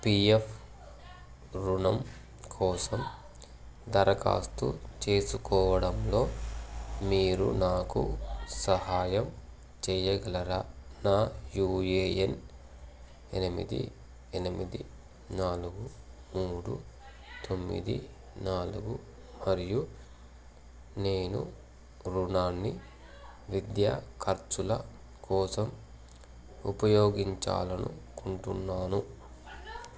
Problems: none marked